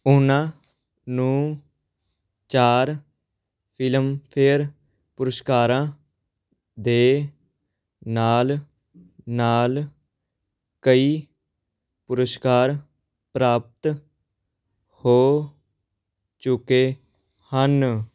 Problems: background sounds at intervals